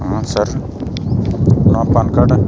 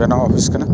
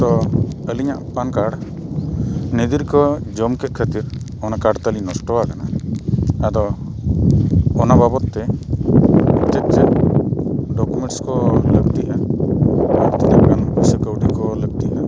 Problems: constant background noise